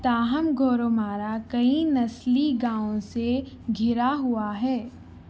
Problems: none marked